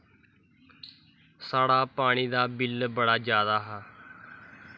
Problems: background sounds at intervals